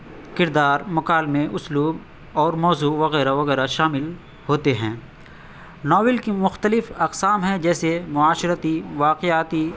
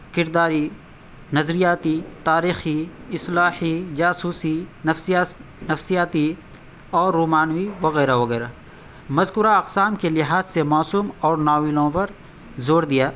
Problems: constant background noise